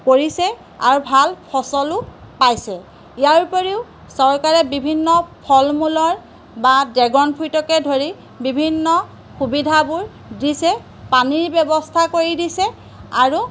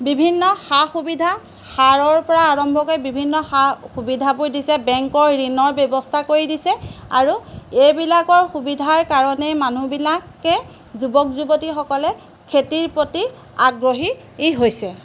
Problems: none marked